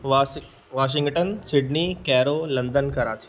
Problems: background sounds at intervals